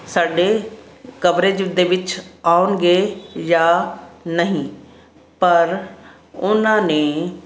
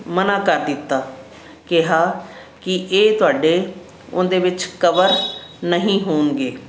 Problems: constant background noise